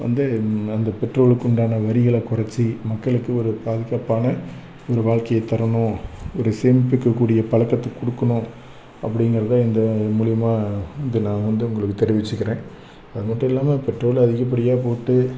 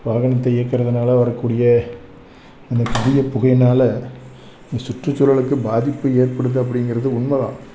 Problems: background sounds at intervals, background conversations at intervals